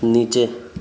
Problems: background sounds at intervals